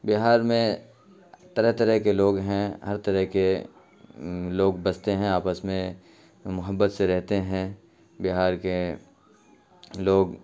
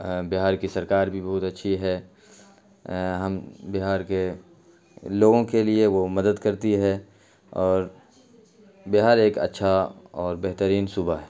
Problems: constant background noise